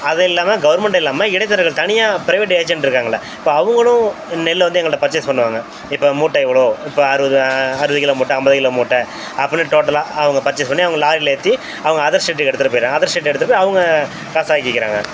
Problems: constant background noise